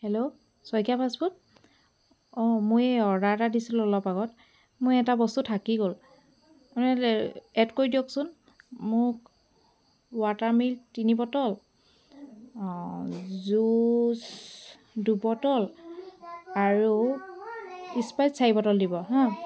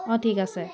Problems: constant background noise